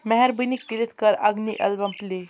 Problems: constant background noise